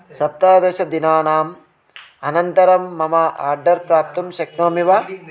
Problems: none marked